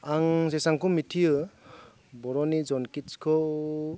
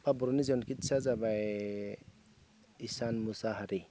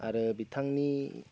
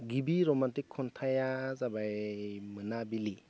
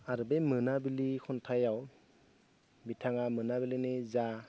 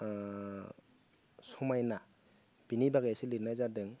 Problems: none marked